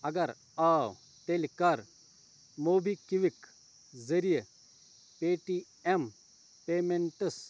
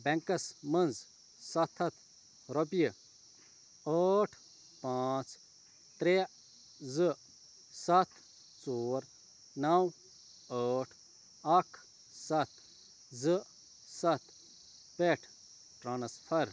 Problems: none marked